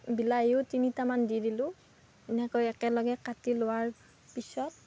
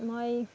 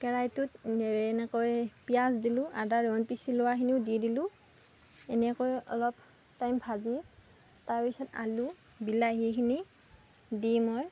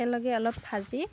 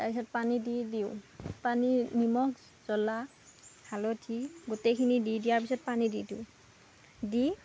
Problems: background sounds at intervals